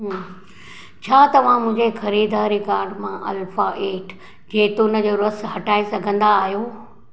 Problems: none marked